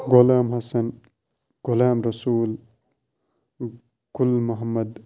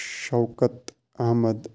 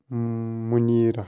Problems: constant background noise